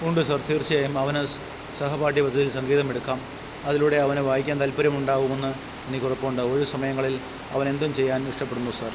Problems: constant background noise